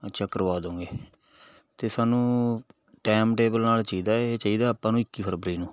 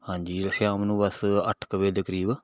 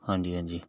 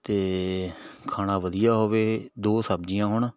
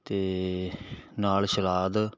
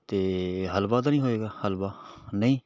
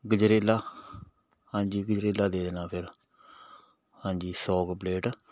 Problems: background sounds at intervals